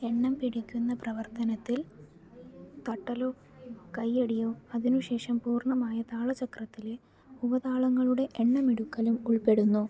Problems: low volume